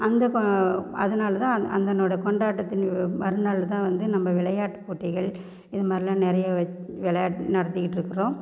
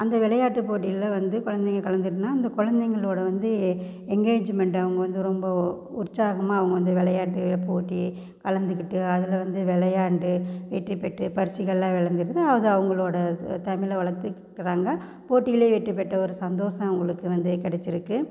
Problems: constant background noise